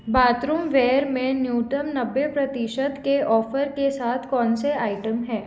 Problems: none marked